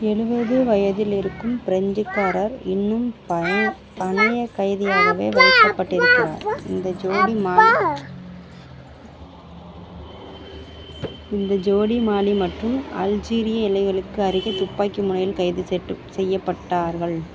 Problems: background sounds at intervals